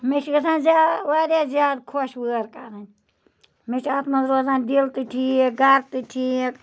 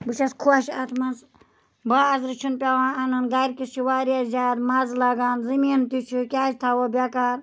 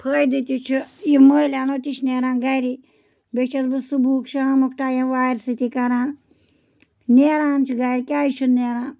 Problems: none marked